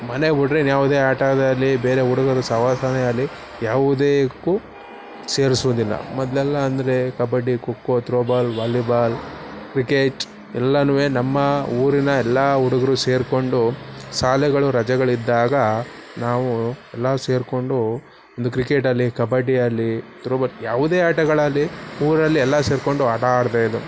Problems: background sounds at intervals